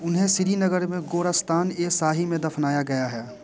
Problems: constant background noise, continuous background conversations